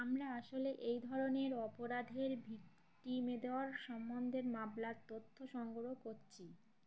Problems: background sounds at intervals